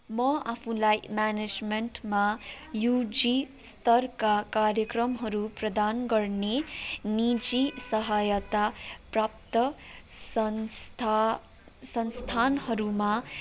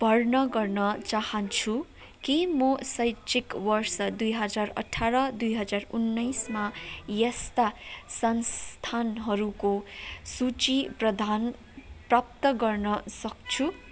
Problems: none marked